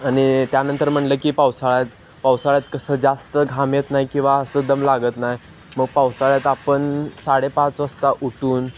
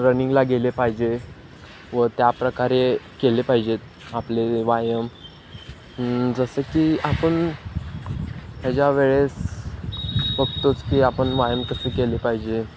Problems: constant background noise